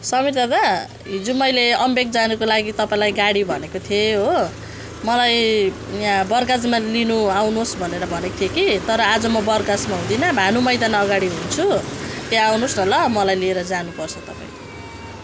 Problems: background sounds at intervals